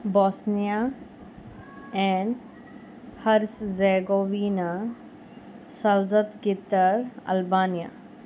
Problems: none marked